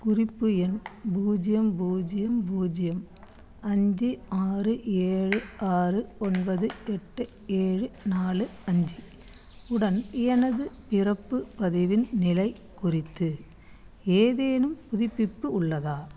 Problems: constant background noise